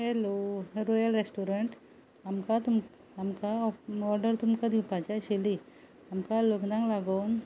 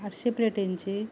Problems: background sounds at intervals